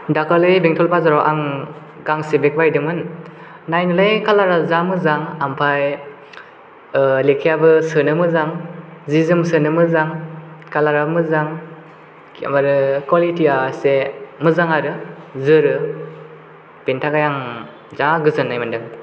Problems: none marked